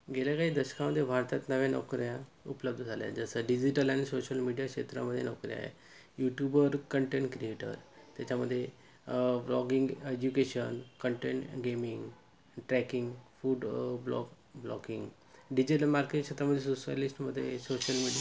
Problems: constant background noise